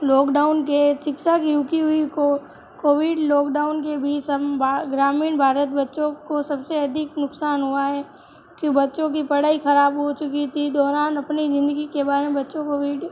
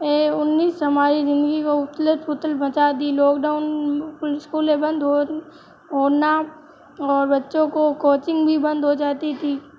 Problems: background sounds at intervals